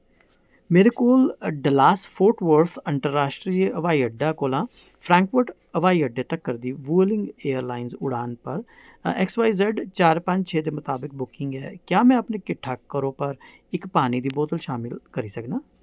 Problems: background sounds at intervals